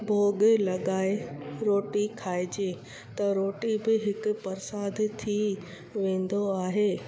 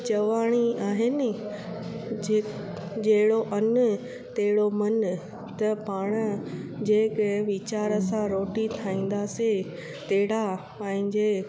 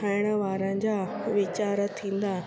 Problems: constant background noise, echo